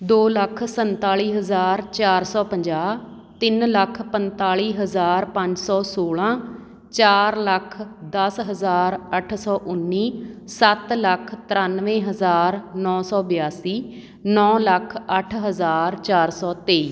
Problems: background sounds at intervals